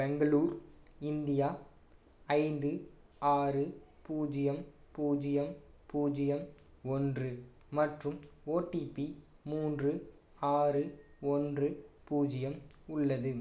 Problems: none marked